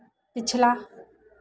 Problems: constant background noise